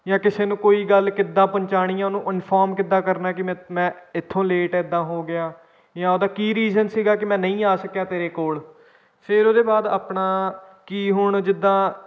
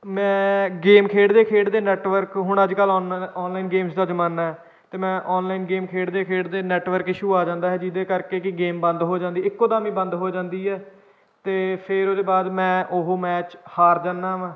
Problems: none marked